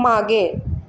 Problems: none marked